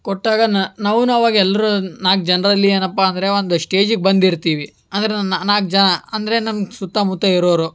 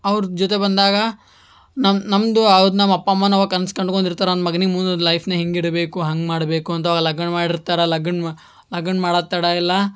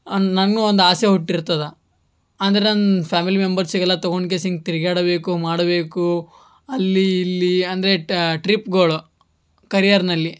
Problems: background sounds at intervals